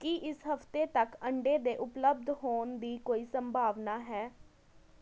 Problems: constant background noise, background conversations at intervals